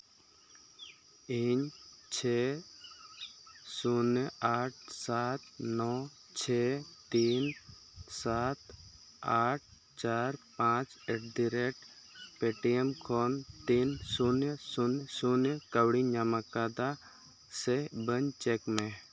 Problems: constant background noise